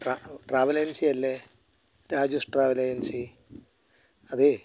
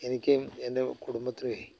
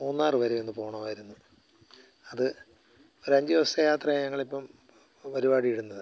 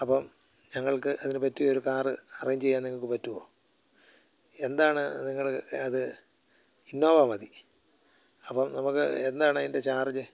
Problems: low volume